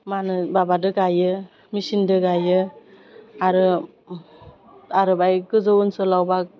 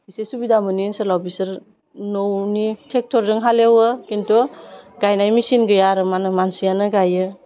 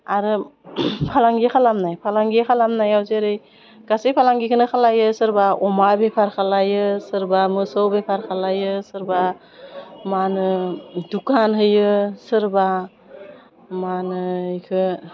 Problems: constant background noise